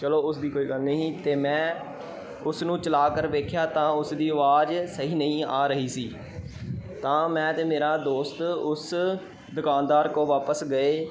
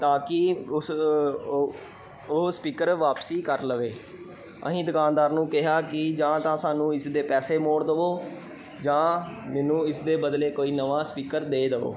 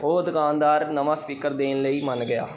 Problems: none marked